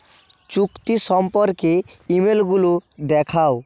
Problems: constant background noise